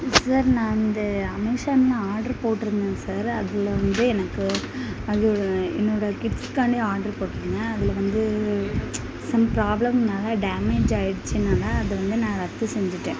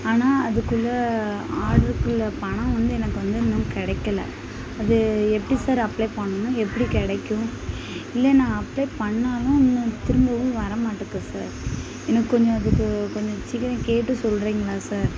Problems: constant background noise, background conversations at intervals